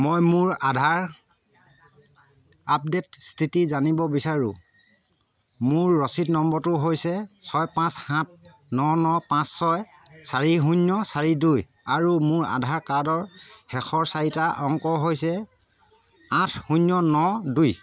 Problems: constant background noise